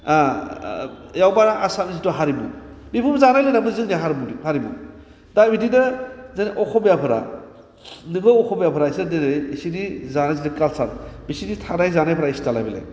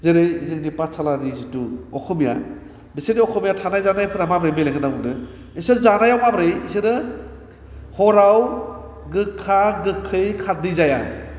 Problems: constant background noise